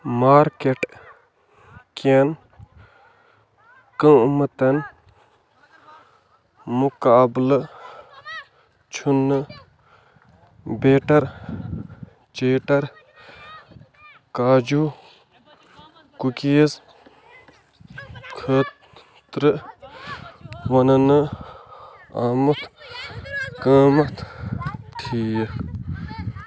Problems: constant background noise